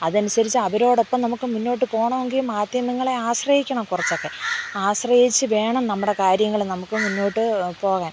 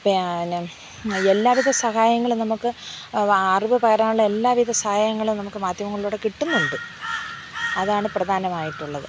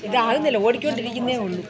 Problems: background sounds at intervals, background conversations at intervals